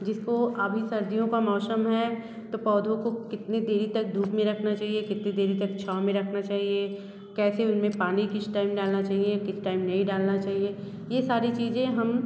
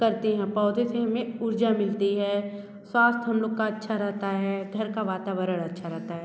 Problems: background sounds at intervals